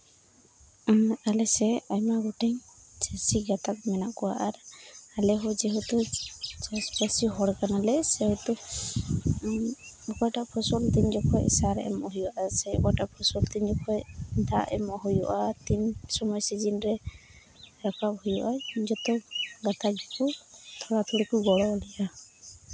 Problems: none marked